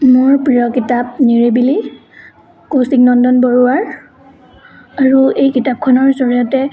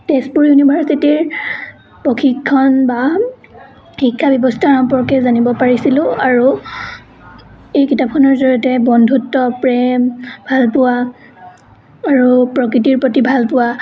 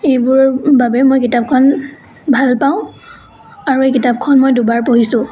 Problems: continuous background conversations